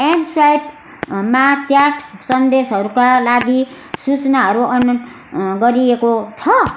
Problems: none marked